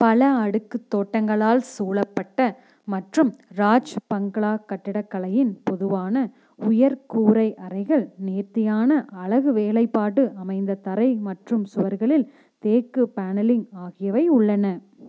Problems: constant background noise